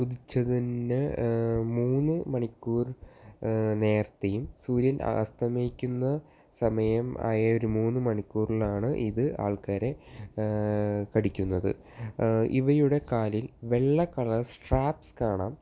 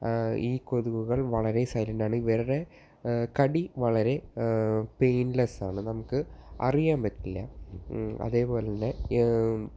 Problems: none marked